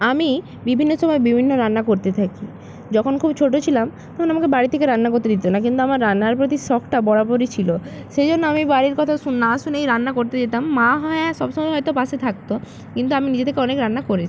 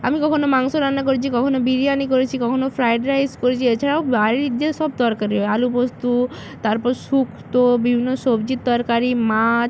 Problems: constant background noise